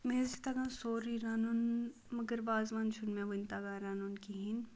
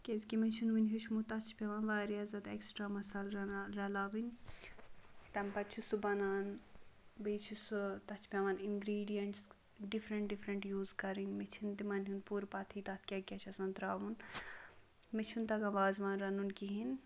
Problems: background sounds at intervals, low volume